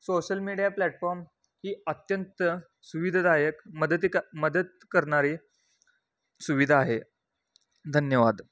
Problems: constant background noise